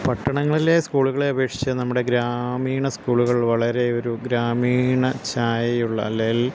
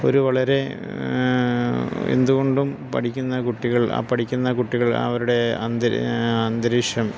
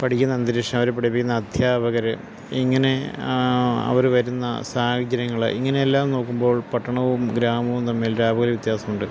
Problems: constant background noise